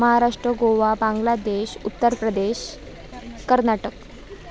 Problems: background sounds at intervals, background conversations at intervals